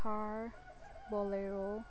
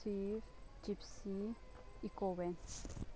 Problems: background sounds at intervals, low volume